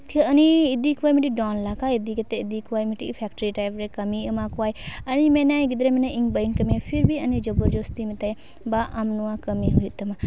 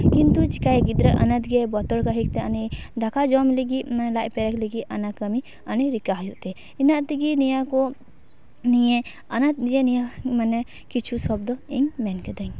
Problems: background sounds at intervals